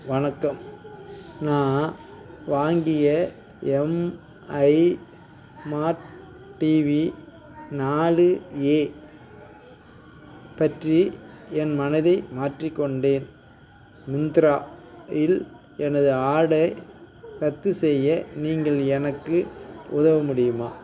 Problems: background sounds at intervals, background conversations at intervals